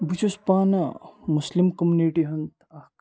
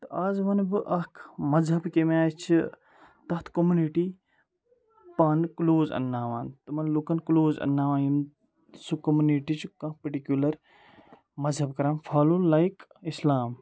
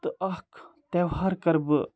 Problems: background sounds at intervals, background conversations at intervals